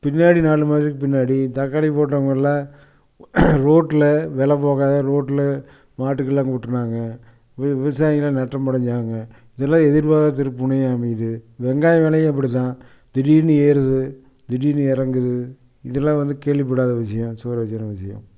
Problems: none marked